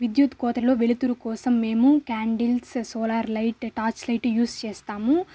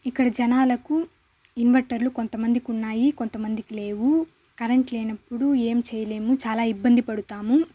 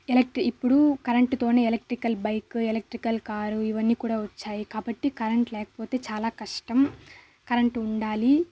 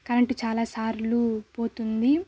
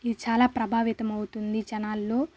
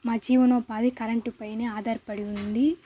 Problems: constant background noise